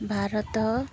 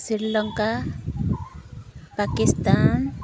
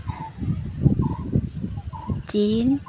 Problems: constant background noise